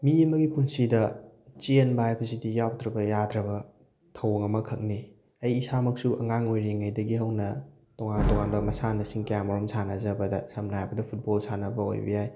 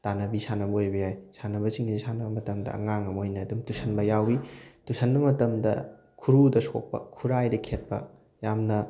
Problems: background sounds at intervals